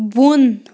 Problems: none marked